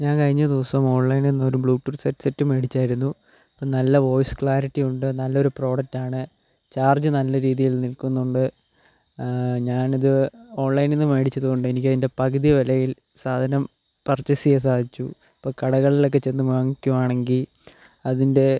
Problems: constant background noise, low volume